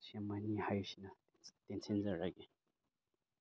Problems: none marked